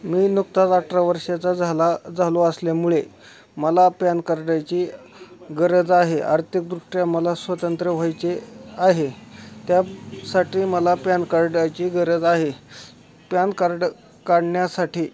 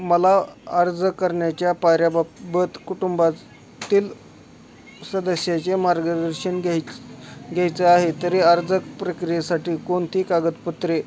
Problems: continuous background conversations